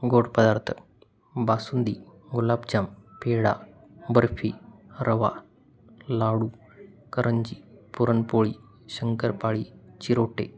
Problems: constant background noise